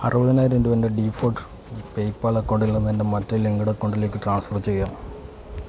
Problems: background sounds at intervals